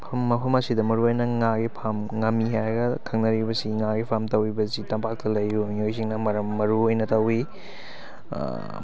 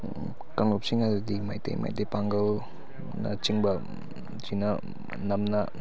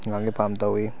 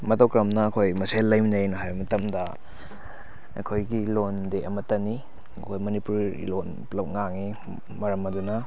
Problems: constant background noise, background conversations at intervals